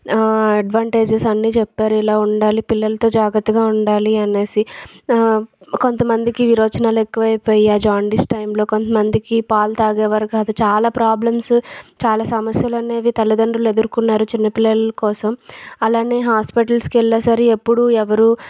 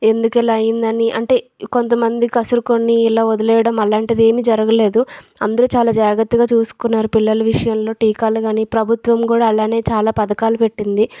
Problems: background sounds at intervals